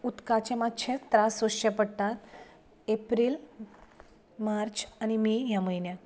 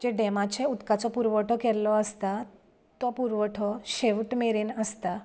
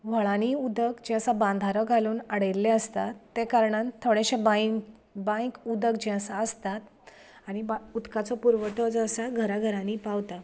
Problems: constant background noise